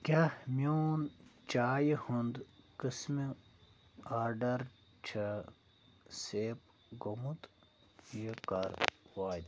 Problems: low volume